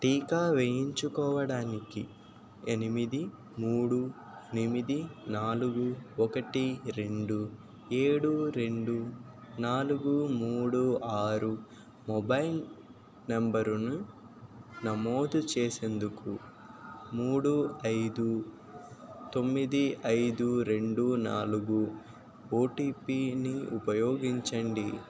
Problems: constant background noise